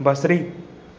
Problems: constant background noise